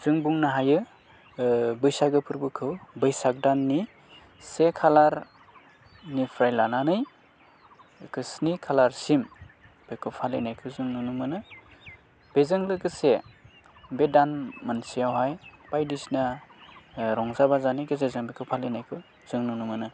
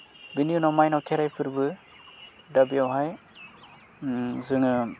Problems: constant background noise